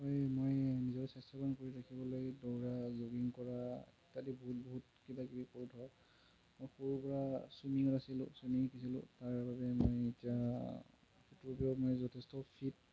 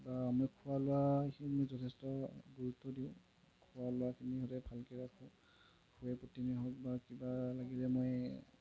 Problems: low volume